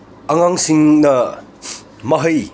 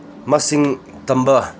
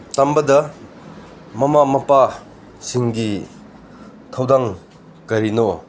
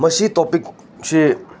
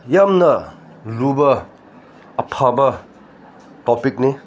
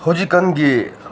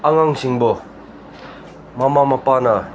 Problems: none marked